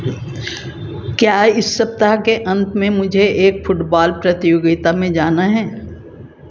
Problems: constant background noise